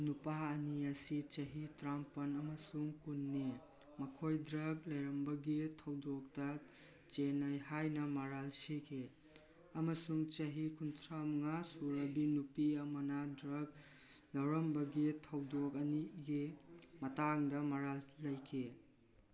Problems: background conversations at intervals